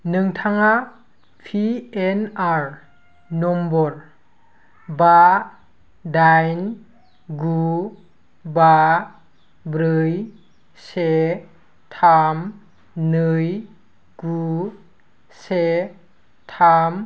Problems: none marked